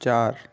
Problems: none marked